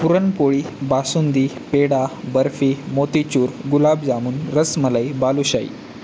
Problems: constant background noise